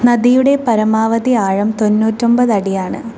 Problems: constant background noise